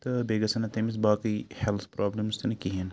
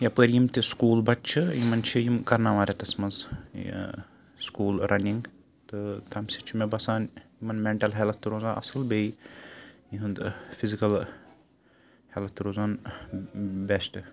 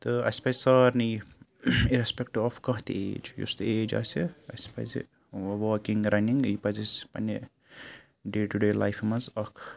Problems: constant background noise